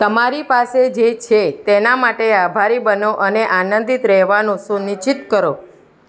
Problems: background conversations at intervals